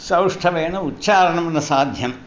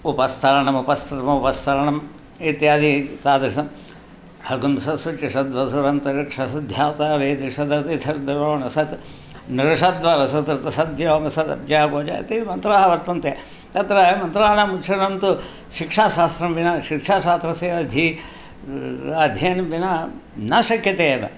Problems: none marked